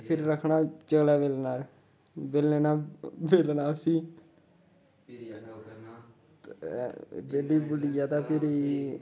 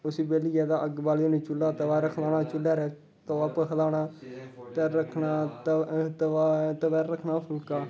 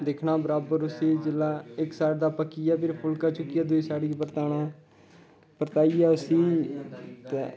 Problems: constant background noise